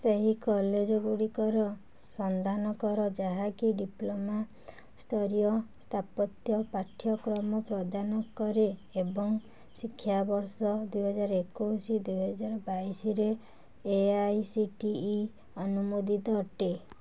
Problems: background conversations at intervals